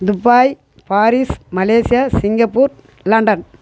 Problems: none marked